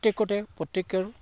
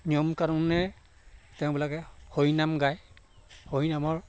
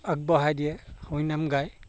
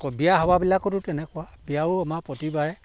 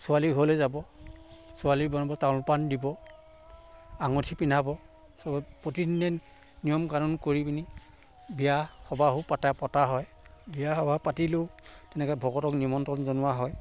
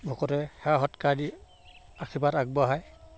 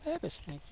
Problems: constant background noise